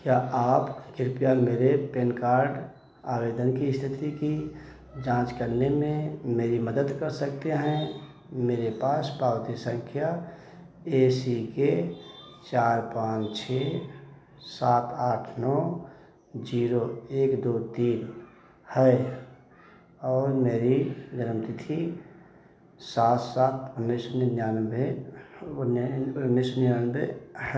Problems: echo